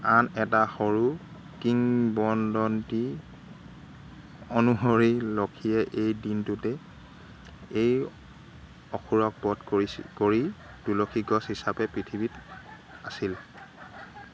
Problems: constant background noise